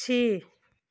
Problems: constant background noise